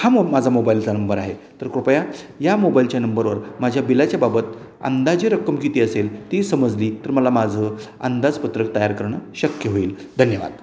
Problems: constant background noise, background conversations at intervals, echo